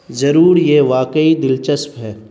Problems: constant background noise